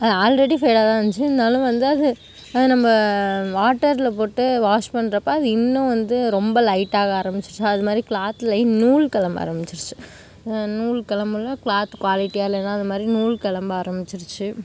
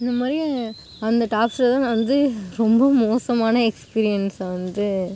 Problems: background sounds at intervals